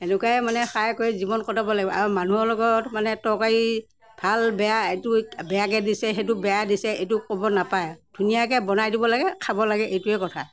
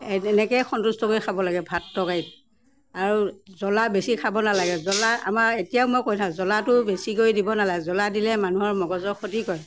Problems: none marked